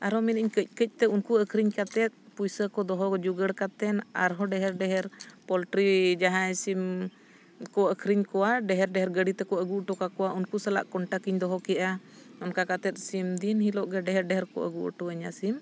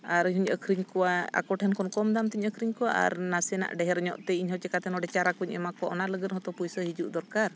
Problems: none marked